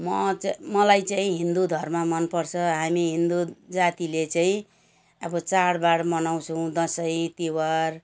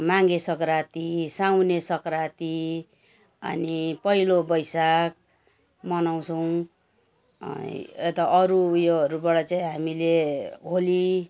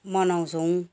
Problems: none marked